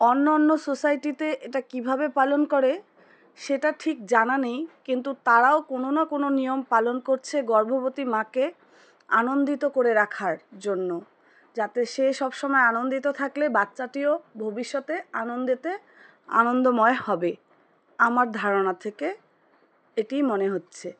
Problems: constant background noise